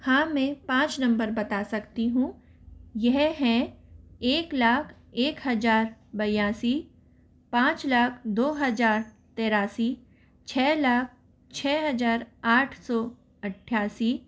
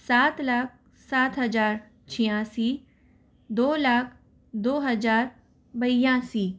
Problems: none marked